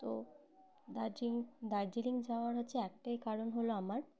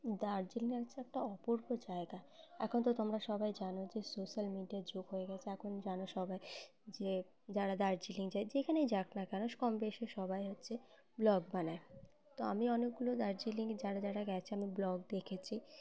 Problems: constant background noise, background conversations at intervals